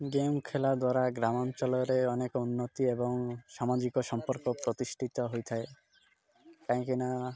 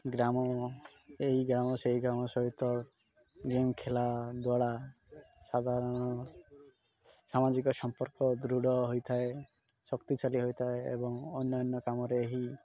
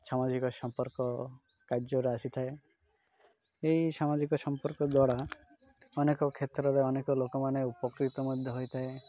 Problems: constant background noise